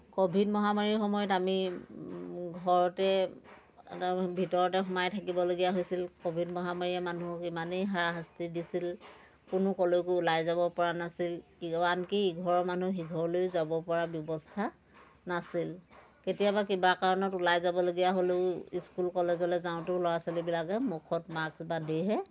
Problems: none marked